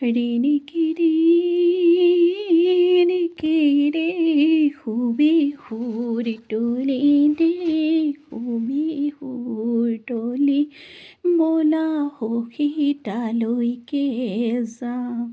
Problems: background sounds at intervals